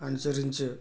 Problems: none marked